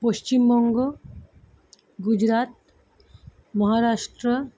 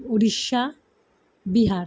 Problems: none marked